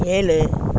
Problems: constant background noise